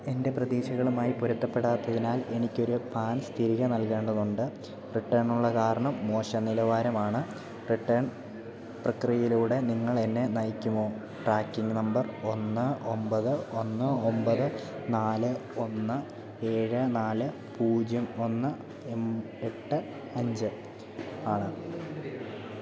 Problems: low volume